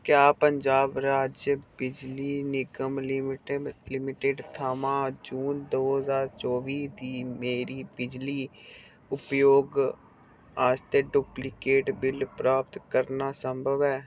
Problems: none marked